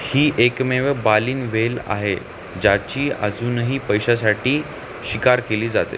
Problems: constant background noise